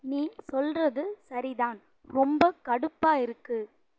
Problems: low volume